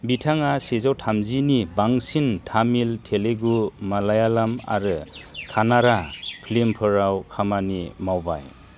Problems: low volume